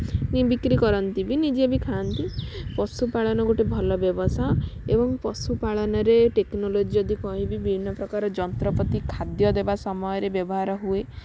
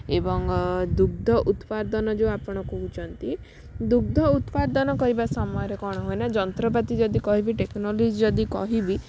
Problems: none marked